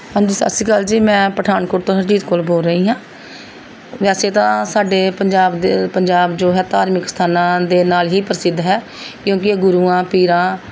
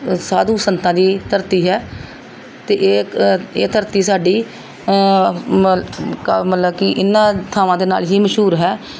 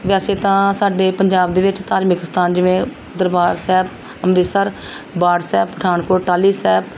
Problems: background sounds at intervals, background conversations at intervals